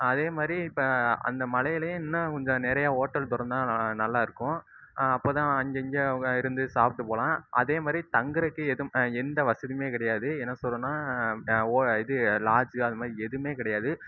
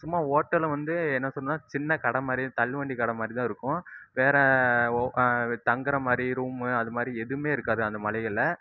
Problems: none marked